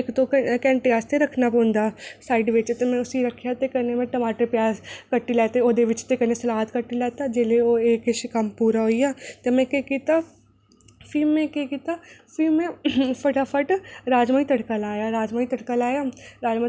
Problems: none marked